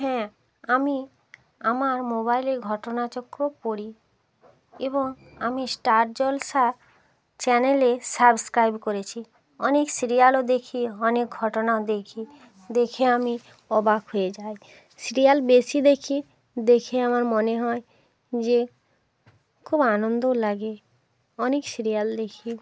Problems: none marked